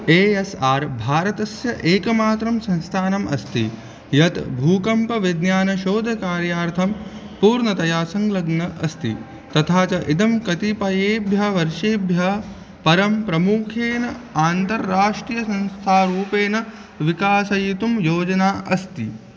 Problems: constant background noise